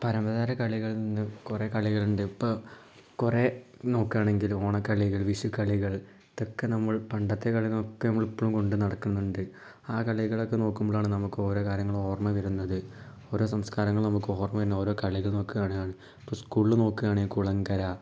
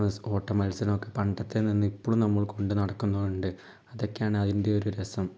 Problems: low volume